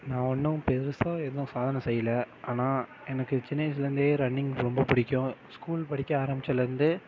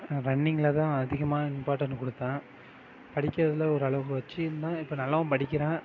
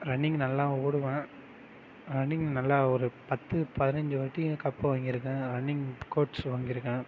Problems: none marked